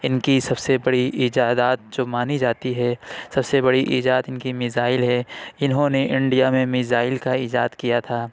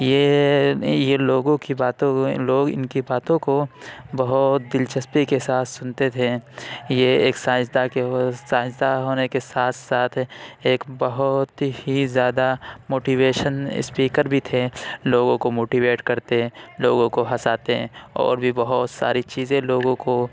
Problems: none marked